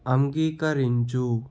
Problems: constant background noise